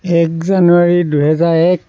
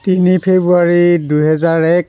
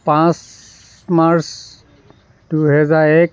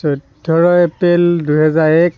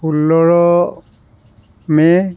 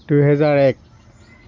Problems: constant background noise